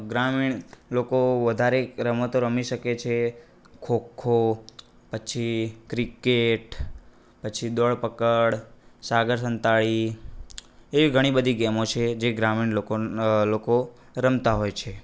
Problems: none marked